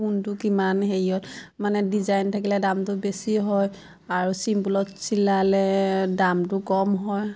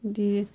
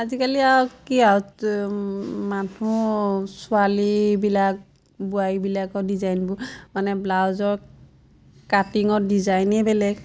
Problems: constant background noise, background conversations at intervals